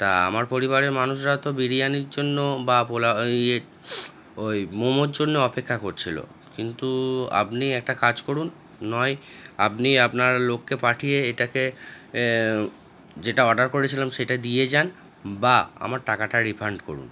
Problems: background sounds at intervals, background conversations at intervals